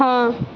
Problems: constant background noise